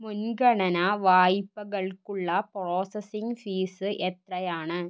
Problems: low volume